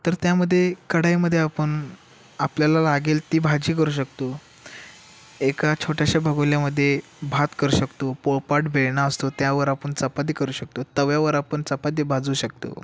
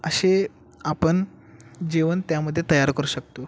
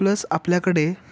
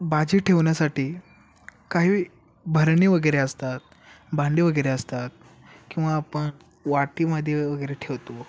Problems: background sounds at intervals